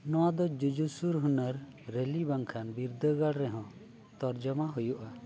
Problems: low volume